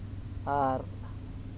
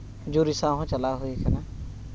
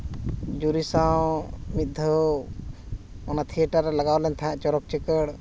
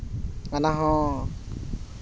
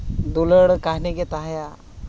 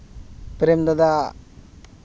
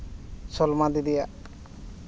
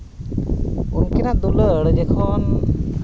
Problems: none marked